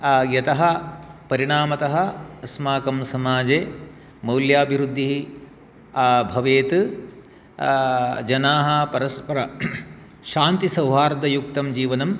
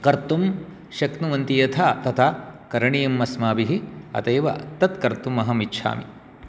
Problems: none marked